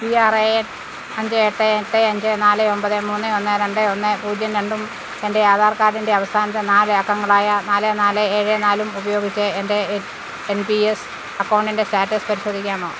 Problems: constant background noise